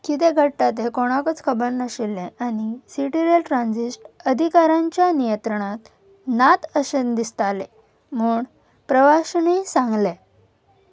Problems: none marked